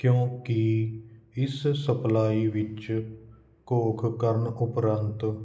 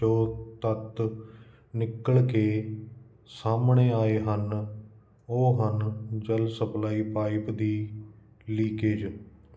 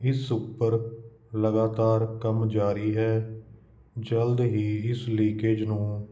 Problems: constant background noise